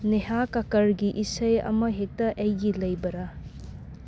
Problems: none marked